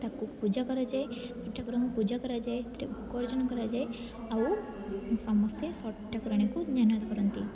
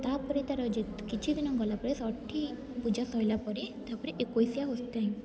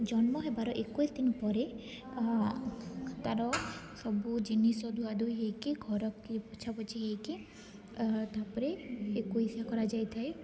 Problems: constant background noise, continuous background conversations